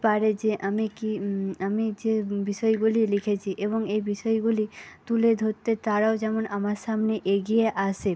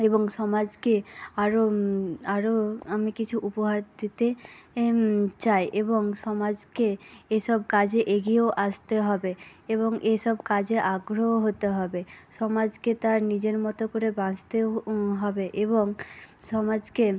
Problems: none marked